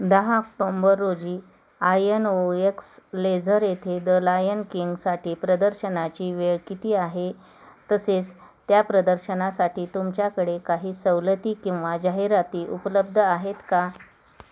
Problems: constant background noise, background conversations at intervals